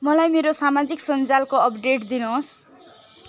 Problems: constant background noise, continuous background conversations